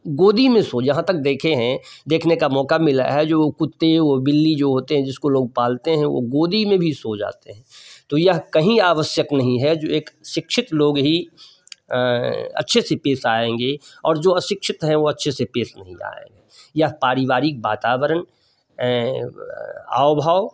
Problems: background sounds at intervals